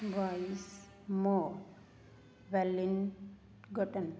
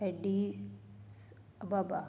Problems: none marked